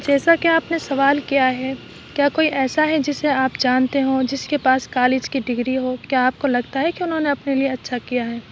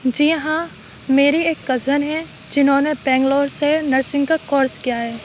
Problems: constant background noise